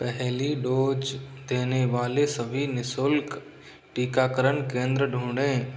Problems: constant background noise